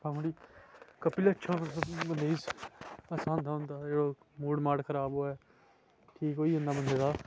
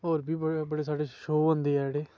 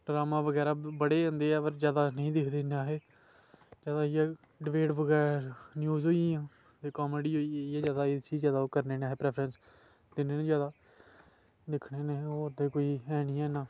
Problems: background sounds at intervals